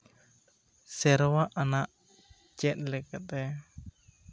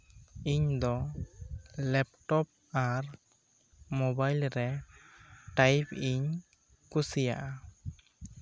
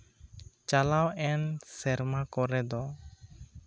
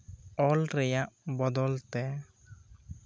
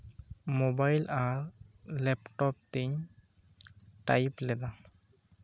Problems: low volume